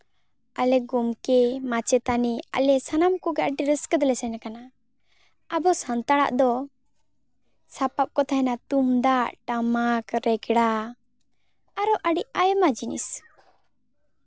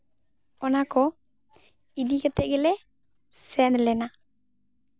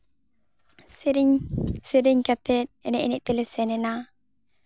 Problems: none marked